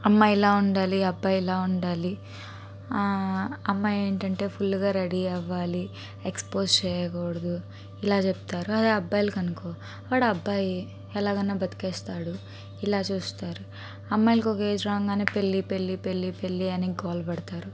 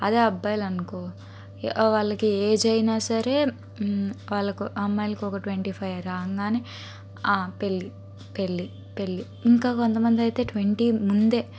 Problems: constant background noise